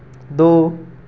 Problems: none marked